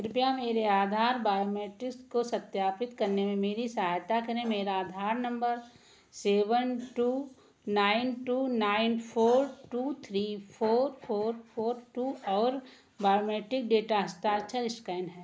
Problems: background sounds at intervals, echo